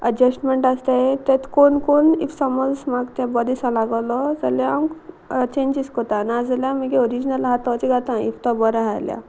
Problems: constant background noise